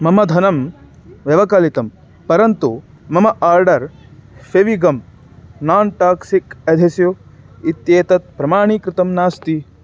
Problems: constant background noise